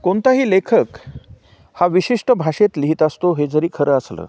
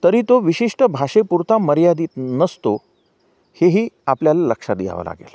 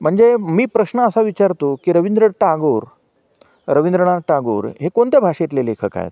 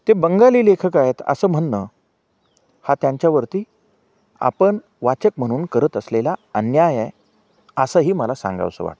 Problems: background sounds at intervals